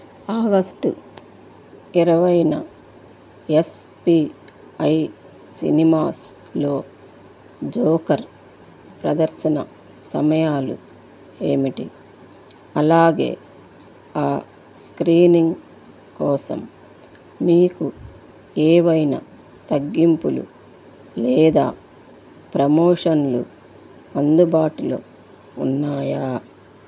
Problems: background sounds at intervals